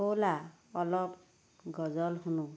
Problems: none marked